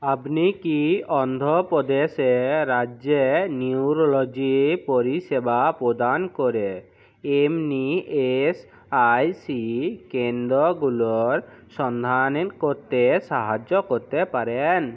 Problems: none marked